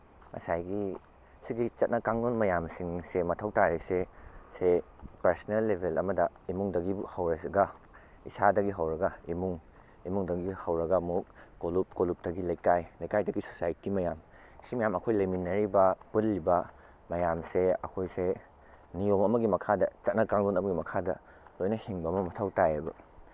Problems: none marked